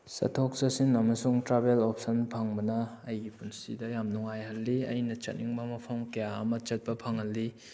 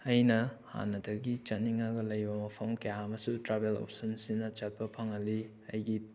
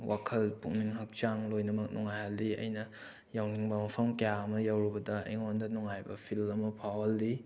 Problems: none marked